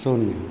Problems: none marked